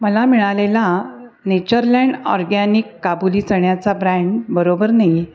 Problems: background sounds at intervals